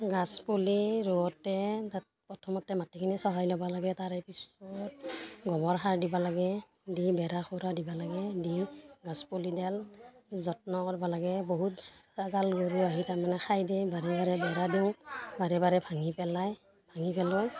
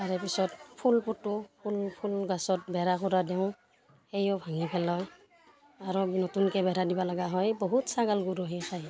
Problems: constant background noise